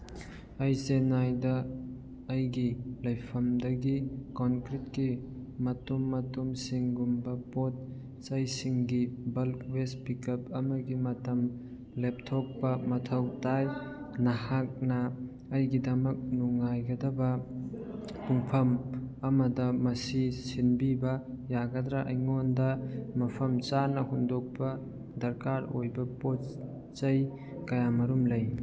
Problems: none marked